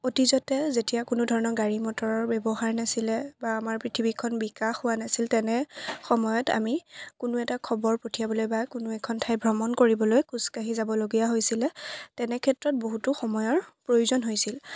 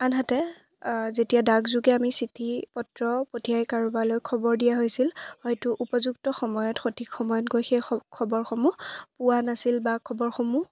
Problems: background conversations at intervals